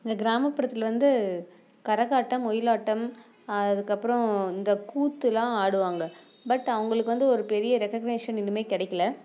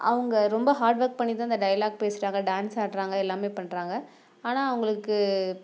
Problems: none marked